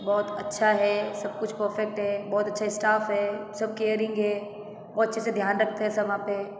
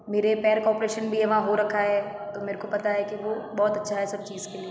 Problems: background sounds at intervals, background conversations at intervals